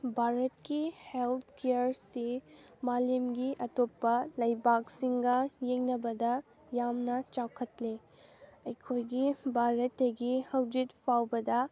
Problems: background sounds at intervals